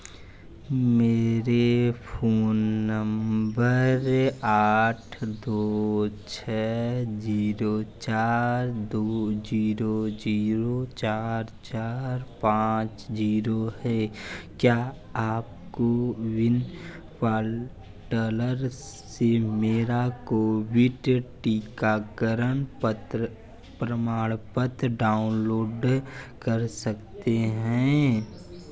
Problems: constant background noise, background conversations at intervals